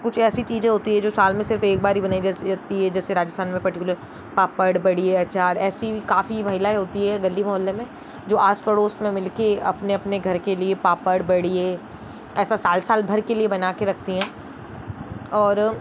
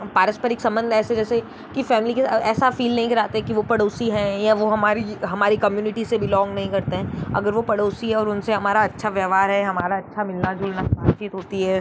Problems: constant background noise